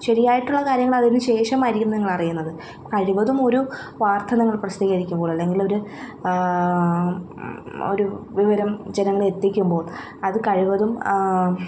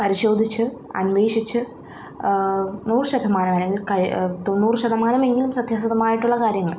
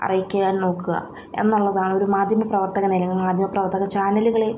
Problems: none marked